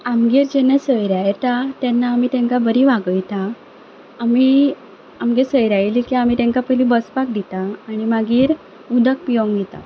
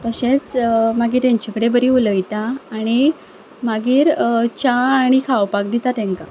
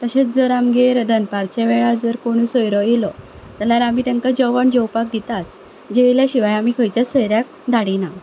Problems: none marked